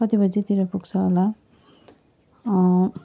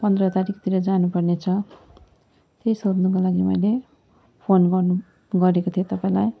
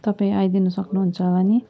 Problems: none marked